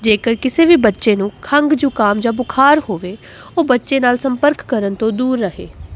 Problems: constant background noise